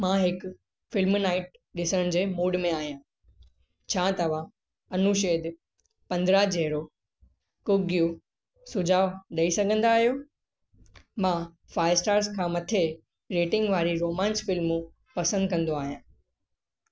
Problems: constant background noise